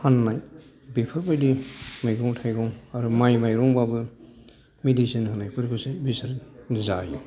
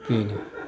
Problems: background sounds at intervals, background conversations at intervals